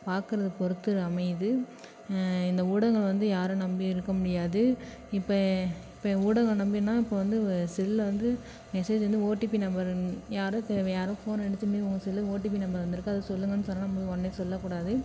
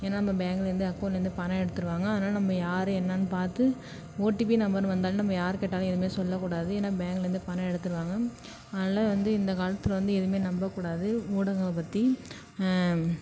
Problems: none marked